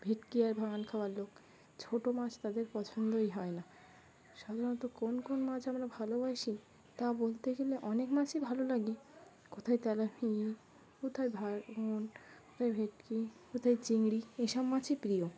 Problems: background sounds at intervals, continuous background conversations